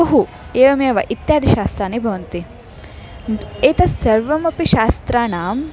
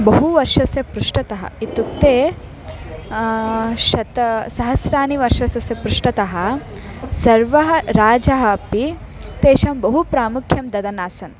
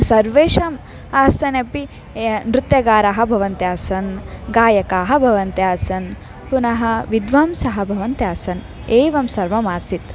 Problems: continuous background conversations